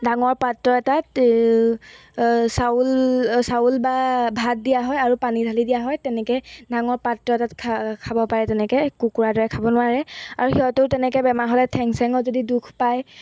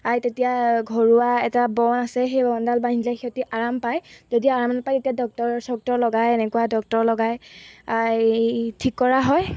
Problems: none marked